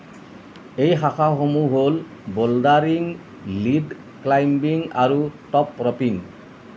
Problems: constant background noise